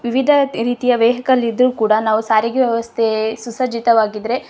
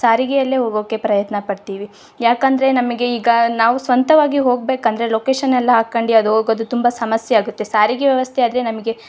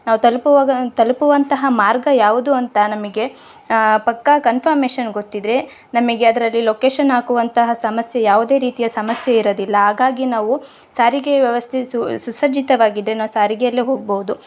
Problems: none marked